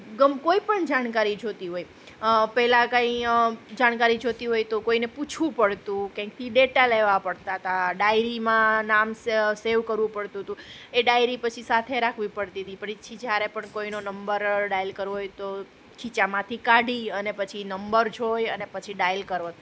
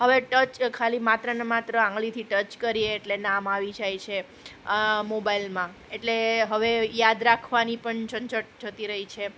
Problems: constant background noise